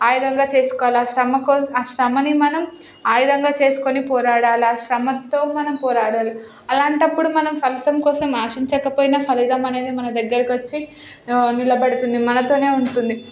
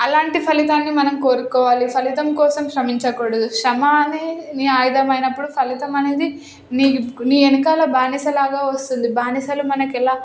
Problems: none marked